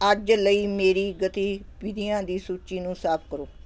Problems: constant background noise